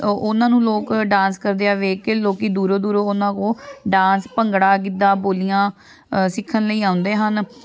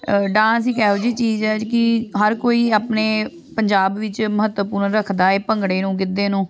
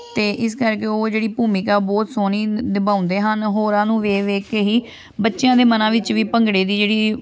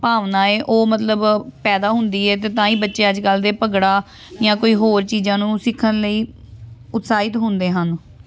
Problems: background sounds at intervals, background conversations at intervals